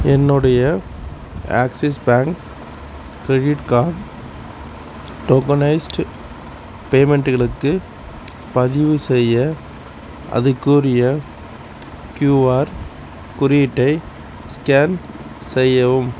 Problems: constant background noise